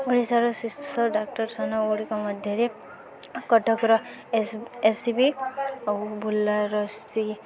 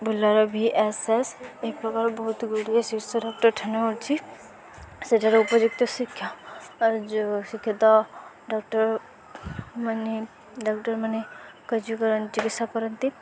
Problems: constant background noise, continuous background conversations